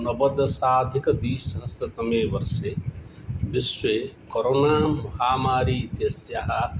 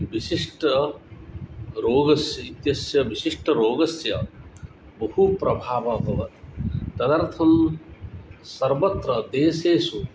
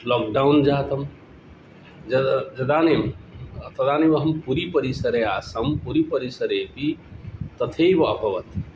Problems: background sounds at intervals